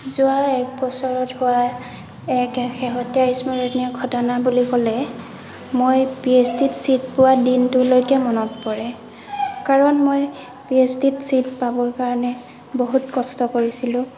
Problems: constant background noise, background conversations at intervals